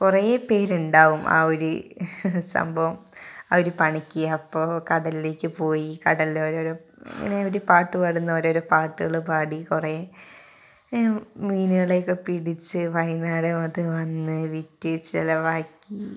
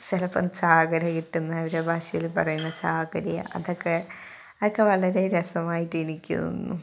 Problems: background conversations at intervals